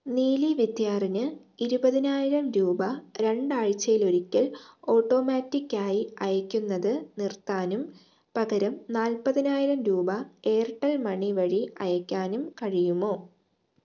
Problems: low volume